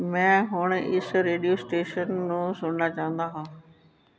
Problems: none marked